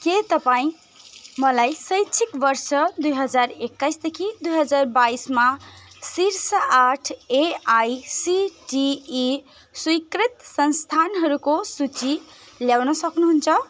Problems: constant background noise